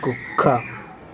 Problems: constant background noise